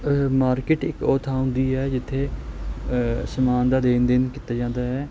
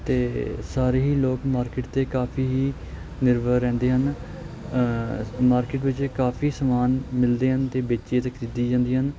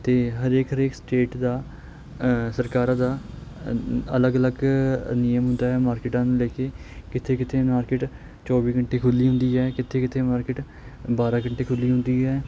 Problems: constant background noise